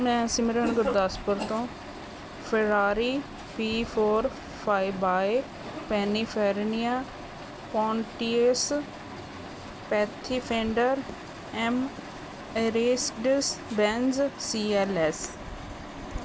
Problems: none marked